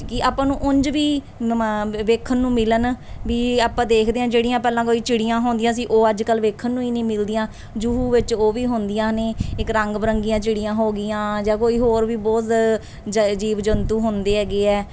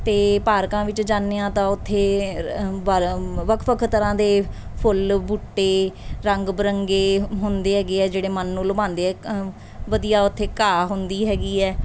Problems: none marked